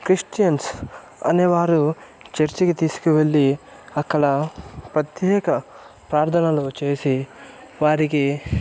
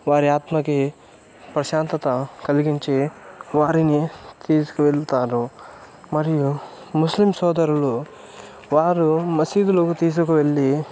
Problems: background sounds at intervals, continuous background conversations